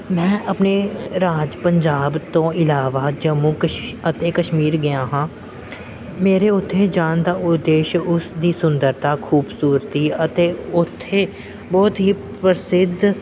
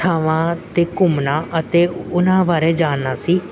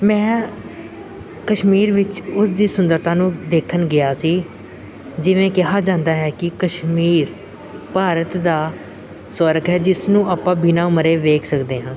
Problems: background sounds at intervals, background conversations at intervals